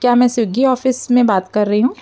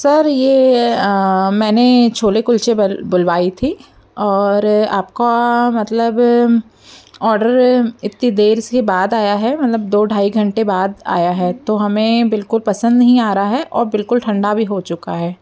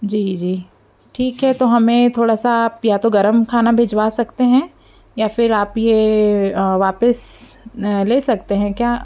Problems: background sounds at intervals, background conversations at intervals